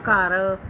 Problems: background sounds at intervals